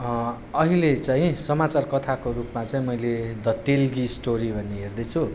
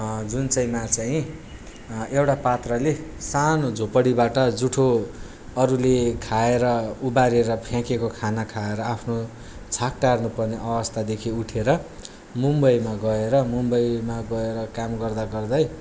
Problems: background sounds at intervals